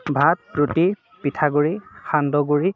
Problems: constant background noise